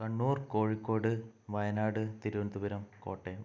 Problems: low volume